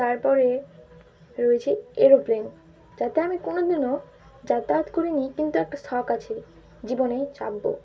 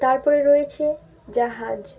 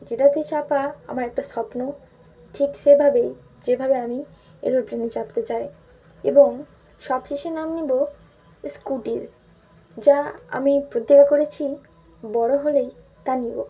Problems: none marked